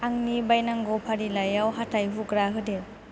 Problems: constant background noise